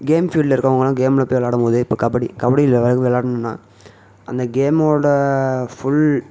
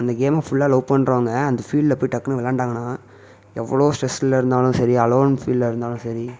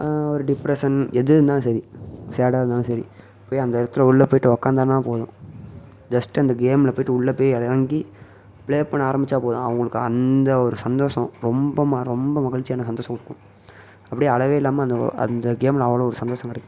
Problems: none marked